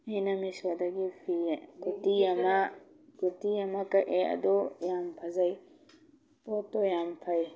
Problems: background sounds at intervals